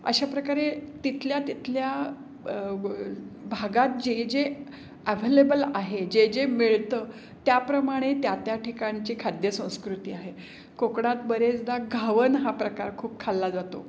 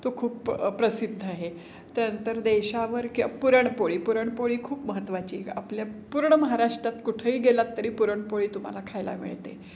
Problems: background sounds at intervals